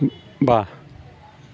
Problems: constant background noise